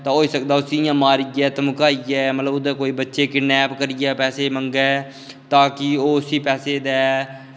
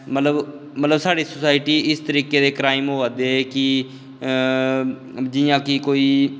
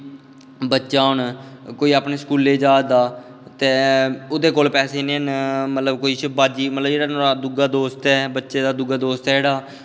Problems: none marked